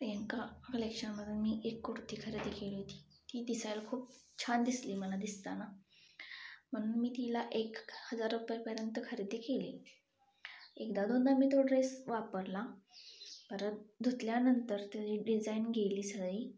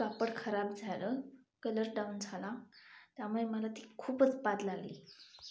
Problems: background sounds at intervals